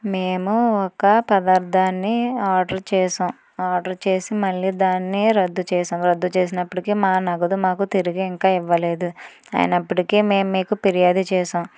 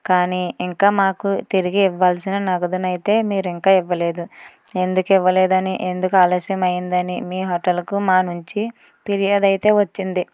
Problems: none marked